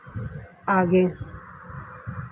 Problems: low volume